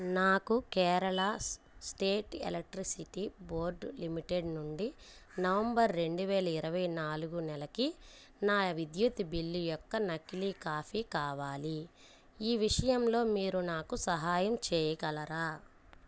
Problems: none marked